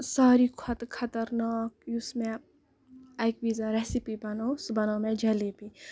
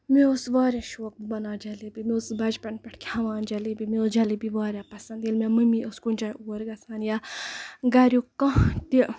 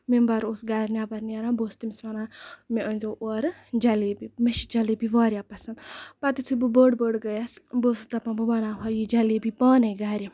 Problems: background sounds at intervals